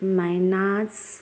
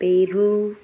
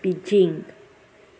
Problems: constant background noise